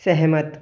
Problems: echo